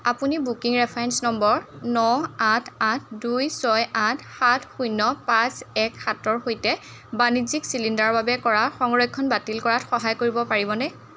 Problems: none marked